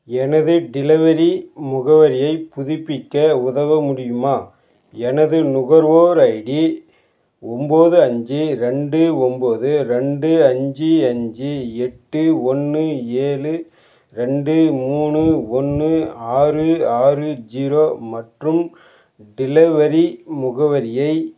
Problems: background sounds at intervals